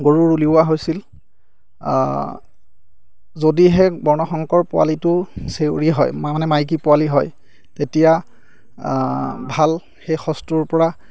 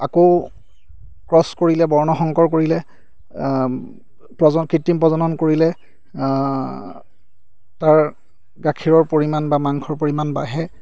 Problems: none marked